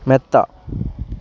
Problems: none marked